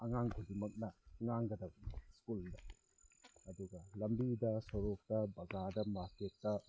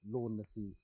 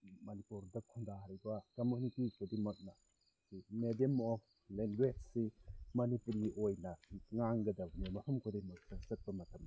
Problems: background sounds at intervals